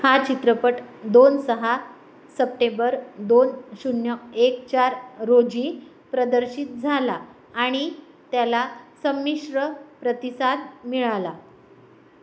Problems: background sounds at intervals